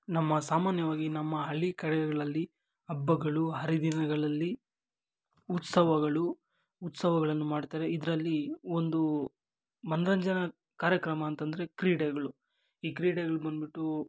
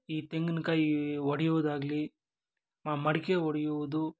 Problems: none marked